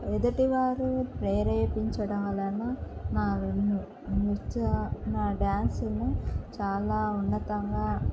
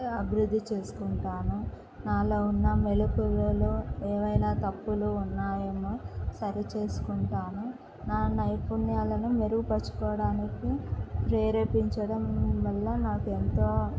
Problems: constant background noise